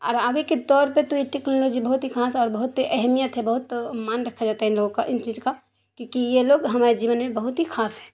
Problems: constant background noise